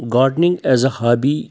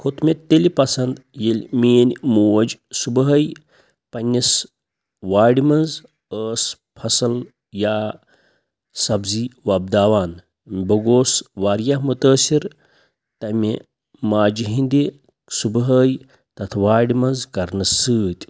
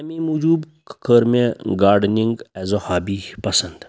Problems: none marked